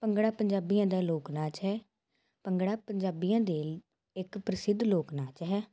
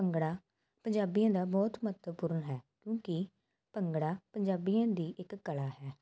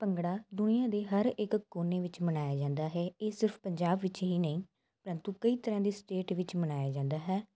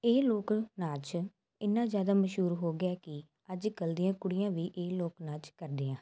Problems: constant background noise